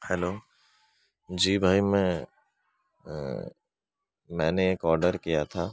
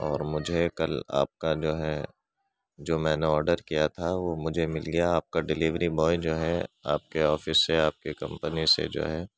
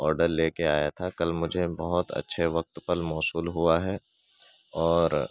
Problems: none marked